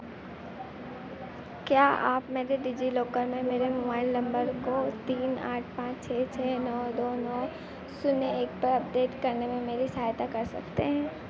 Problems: constant background noise